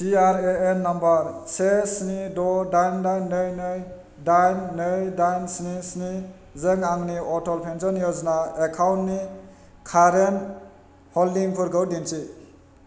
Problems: constant background noise